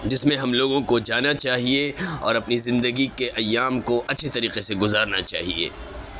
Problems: constant background noise, background conversations at intervals